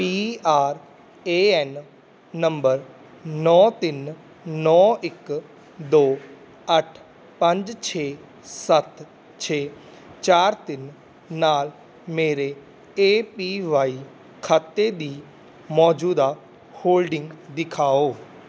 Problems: none marked